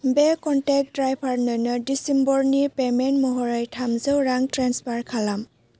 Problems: low volume